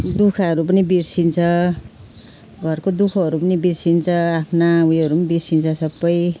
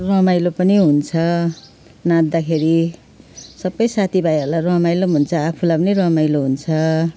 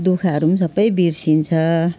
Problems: none marked